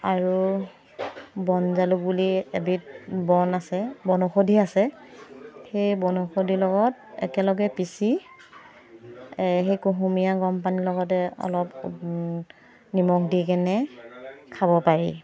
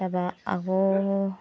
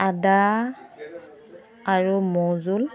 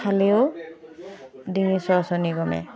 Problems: constant background noise